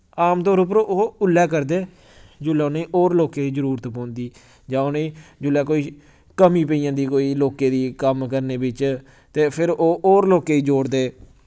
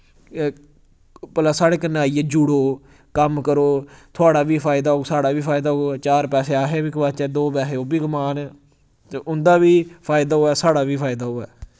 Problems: none marked